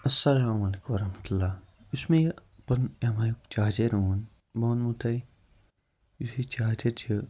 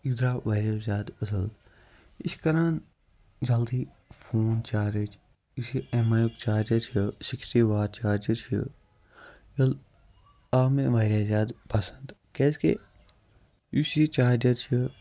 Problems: background sounds at intervals, low volume